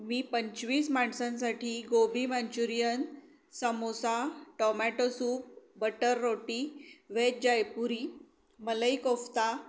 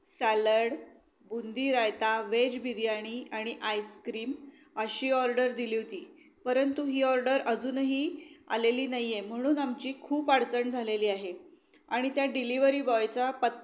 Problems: background sounds at intervals